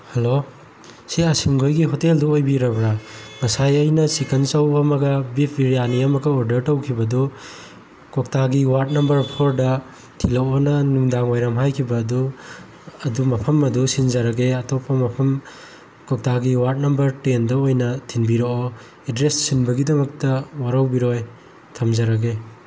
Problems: background sounds at intervals